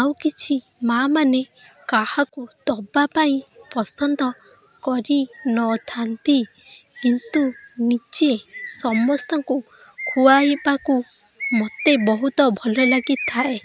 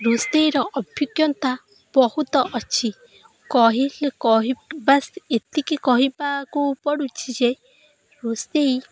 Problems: constant background noise